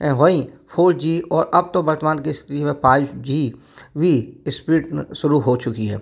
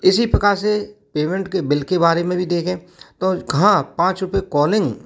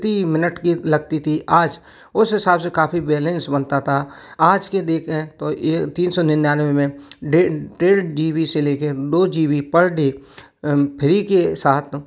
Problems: background sounds at intervals